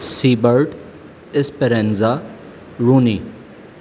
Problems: constant background noise